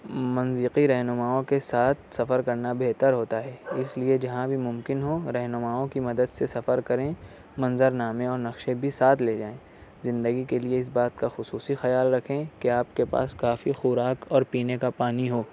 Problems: constant background noise